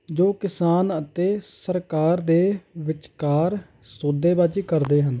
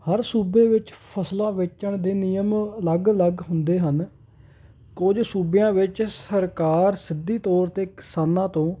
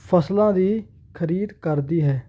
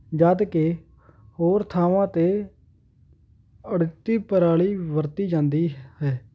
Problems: none marked